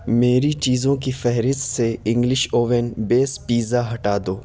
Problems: constant background noise